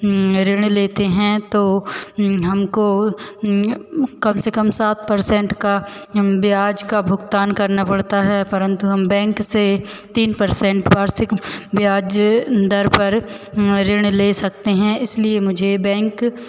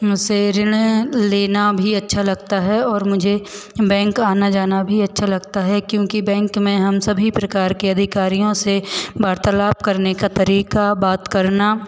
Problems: none marked